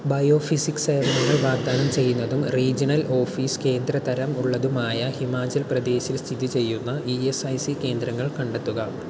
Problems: background sounds at intervals